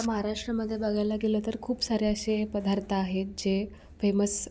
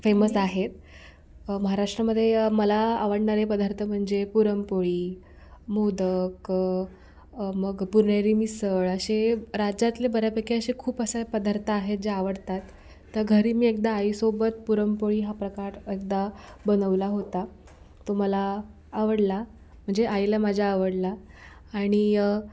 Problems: background sounds at intervals